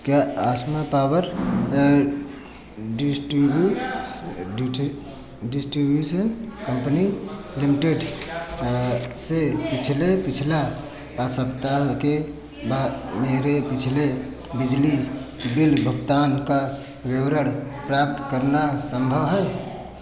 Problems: none marked